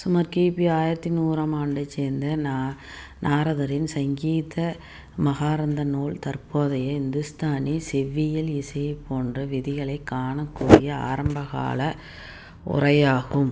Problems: background sounds at intervals